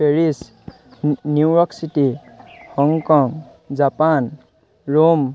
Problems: none marked